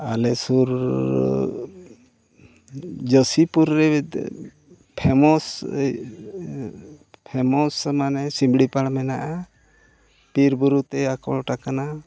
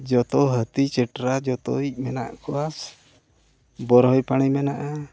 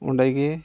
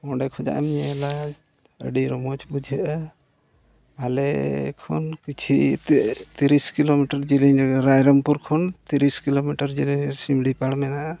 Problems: background sounds at intervals, low volume